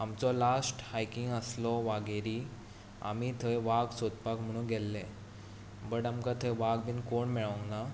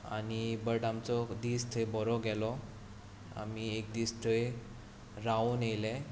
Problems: none marked